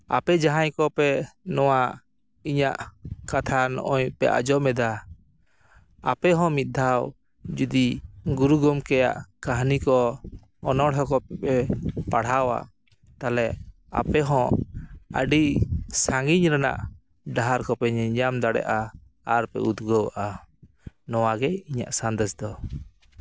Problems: none marked